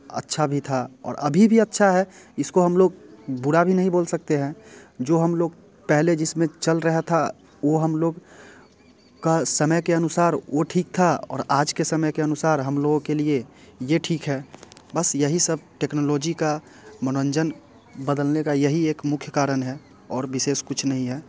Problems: constant background noise